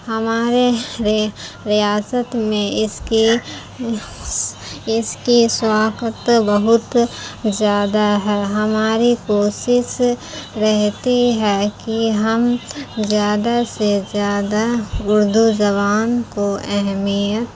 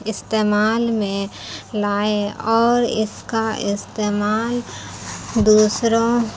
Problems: constant background noise